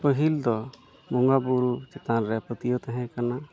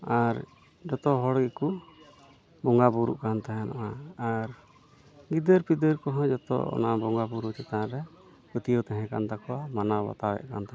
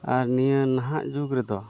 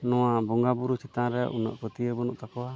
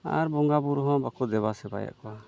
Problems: background sounds at intervals, background conversations at intervals